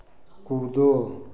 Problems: background sounds at intervals